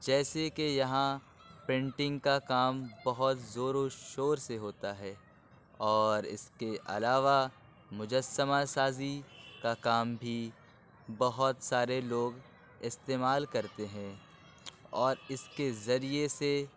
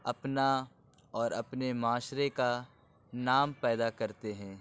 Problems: constant background noise, low volume